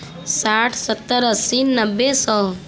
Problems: constant background noise